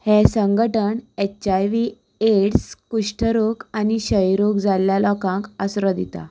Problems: background sounds at intervals